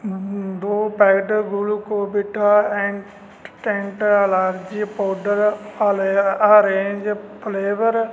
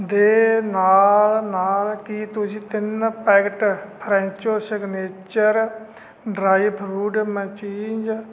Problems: constant background noise